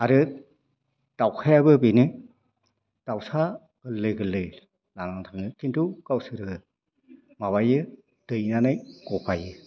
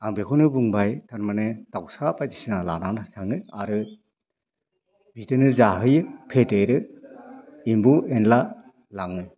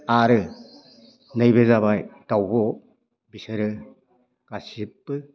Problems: constant background noise